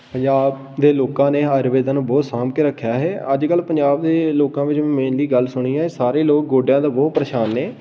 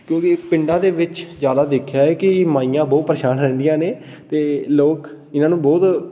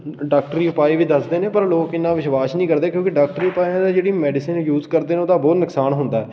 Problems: background sounds at intervals